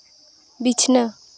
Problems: none marked